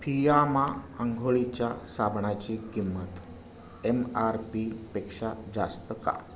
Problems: none marked